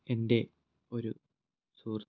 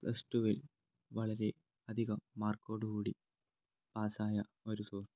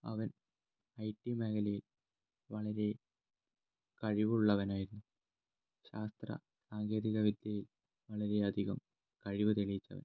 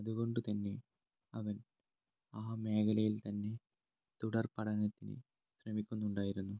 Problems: low volume